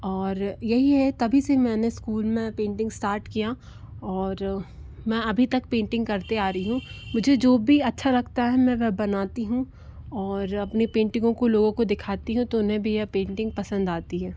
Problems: none marked